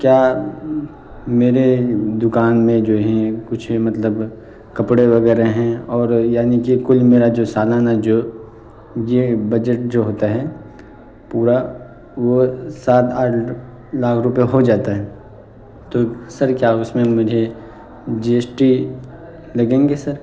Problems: constant background noise